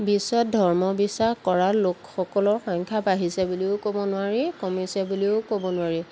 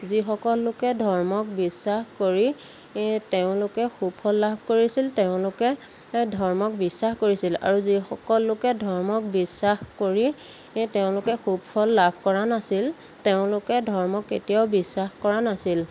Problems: constant background noise